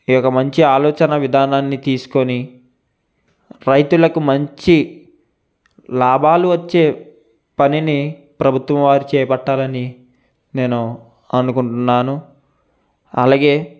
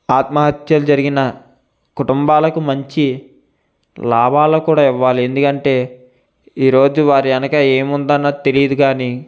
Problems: constant background noise